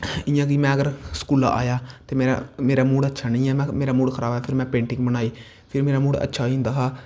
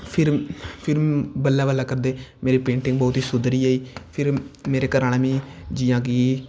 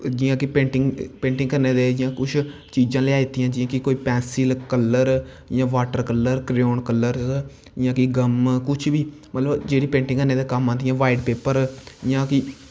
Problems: constant background noise